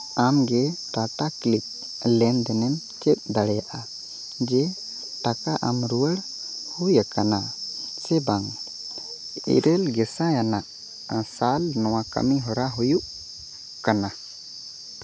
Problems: constant background noise